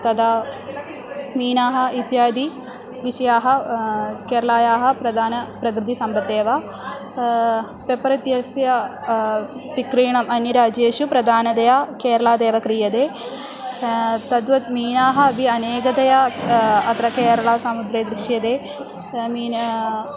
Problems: constant background noise